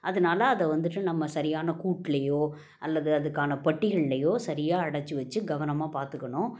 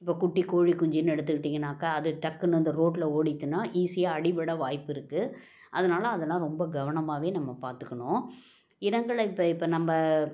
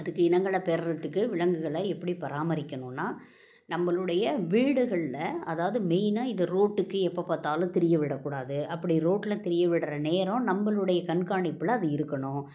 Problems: none marked